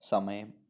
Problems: low volume